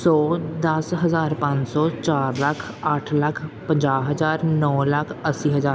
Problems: background sounds at intervals